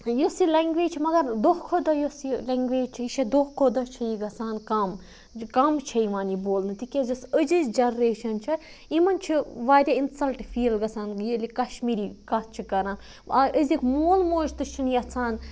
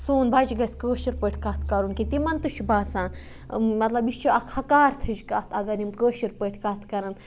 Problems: none marked